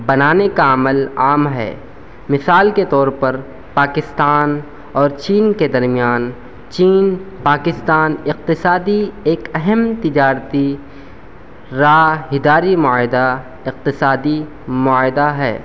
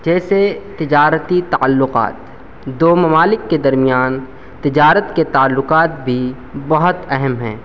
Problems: constant background noise